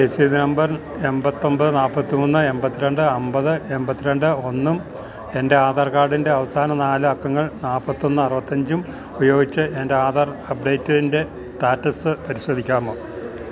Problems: none marked